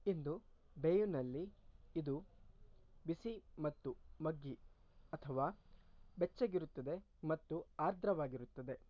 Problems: low volume